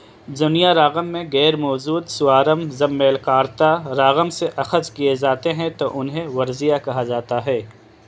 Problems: constant background noise